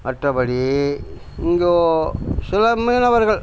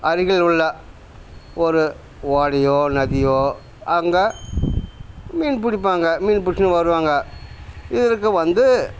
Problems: none marked